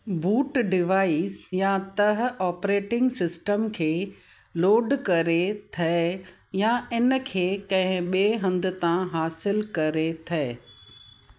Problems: constant background noise